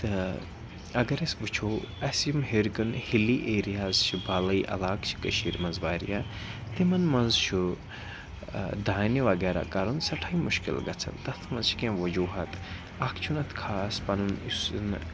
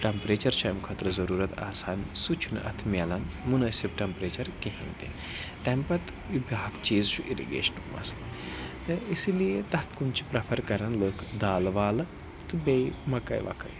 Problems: constant background noise, background conversations at intervals